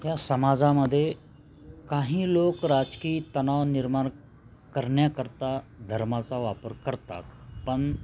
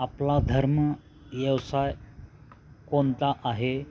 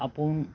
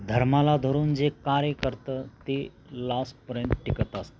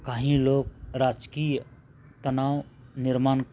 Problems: constant background noise, continuous background conversations